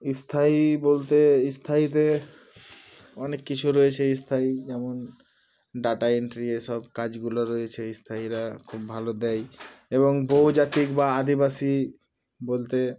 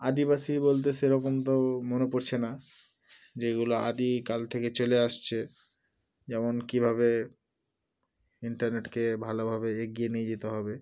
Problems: none marked